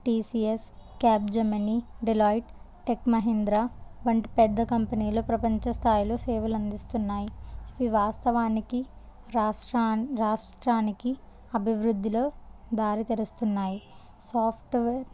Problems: low volume